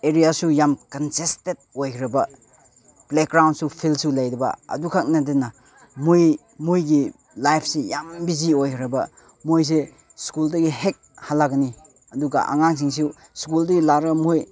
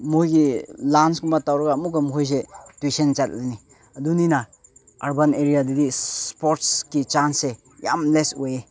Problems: background conversations at intervals